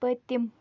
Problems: none marked